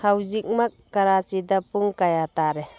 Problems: background conversations at intervals